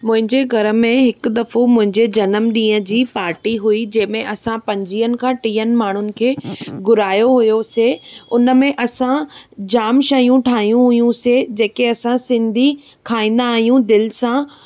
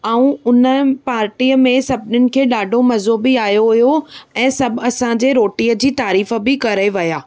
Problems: background sounds at intervals